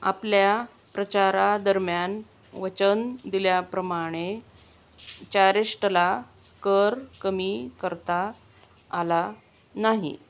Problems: constant background noise